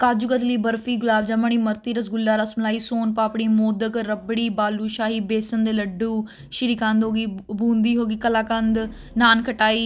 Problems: constant background noise